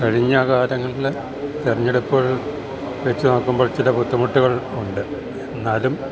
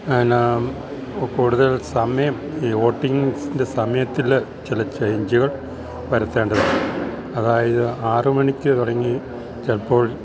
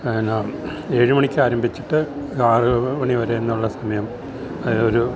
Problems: background sounds at intervals